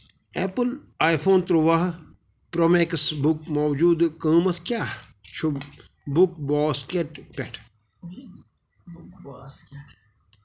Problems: background sounds at intervals, background conversations at intervals